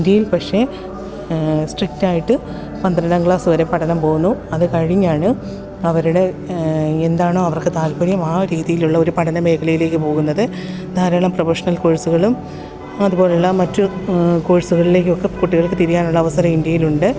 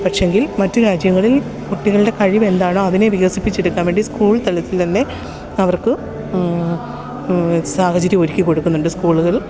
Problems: constant background noise